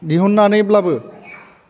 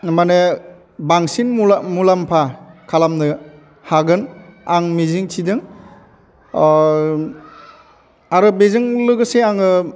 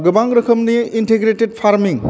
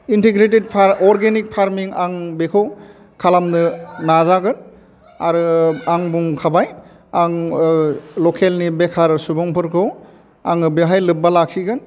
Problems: none marked